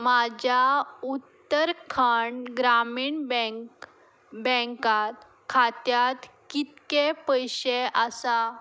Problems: background sounds at intervals